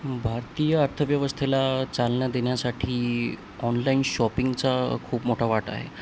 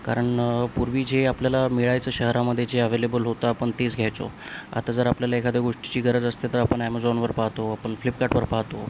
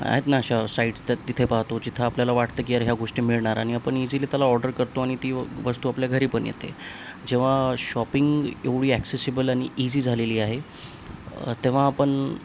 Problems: constant background noise